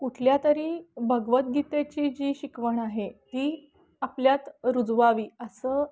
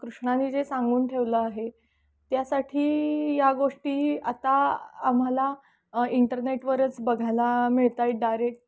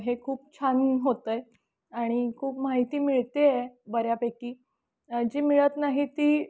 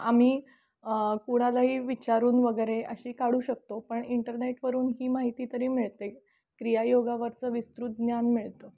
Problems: background sounds at intervals, background conversations at intervals